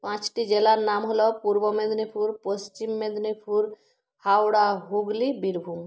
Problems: none marked